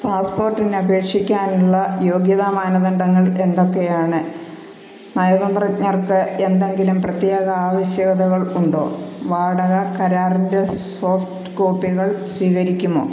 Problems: constant background noise